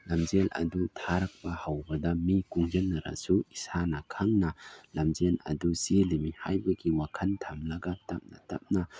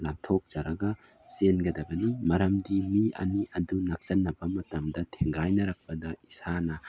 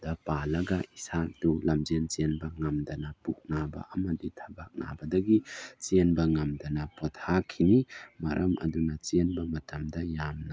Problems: none marked